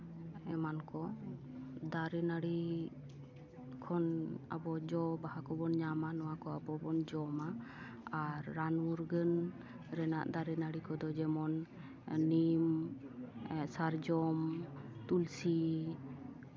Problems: background conversations at intervals